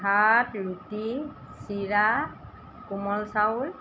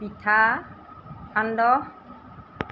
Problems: constant background noise